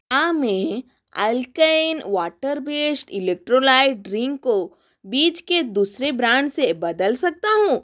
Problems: constant background noise